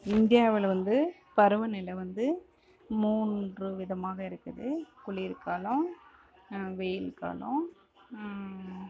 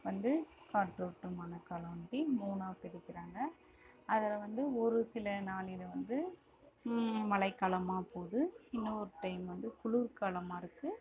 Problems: background sounds at intervals